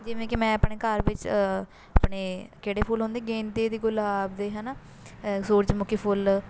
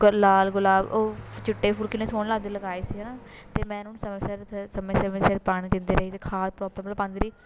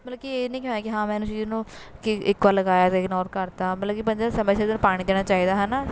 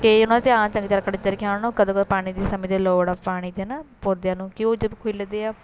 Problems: none marked